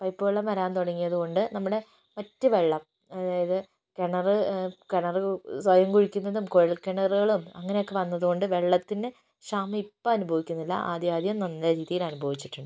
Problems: none marked